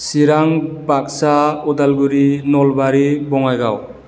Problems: none marked